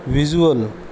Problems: none marked